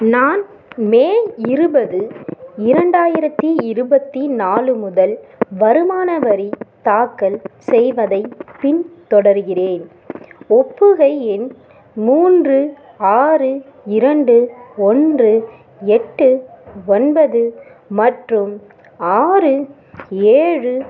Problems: background sounds at intervals, background conversations at intervals